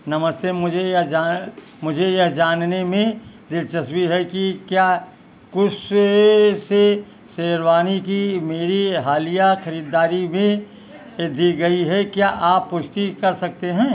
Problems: background sounds at intervals